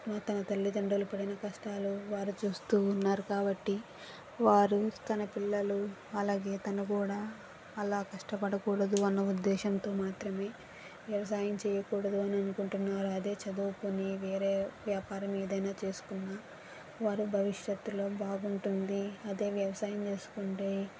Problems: constant background noise